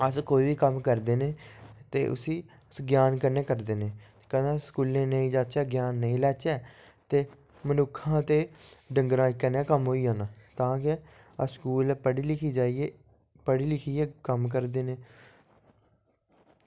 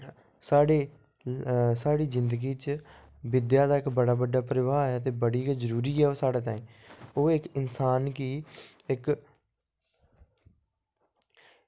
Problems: low volume